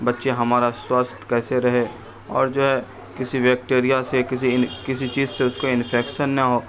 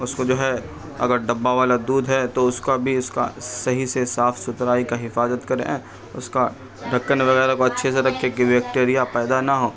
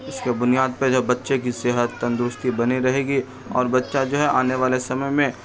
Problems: background sounds at intervals, continuous background conversations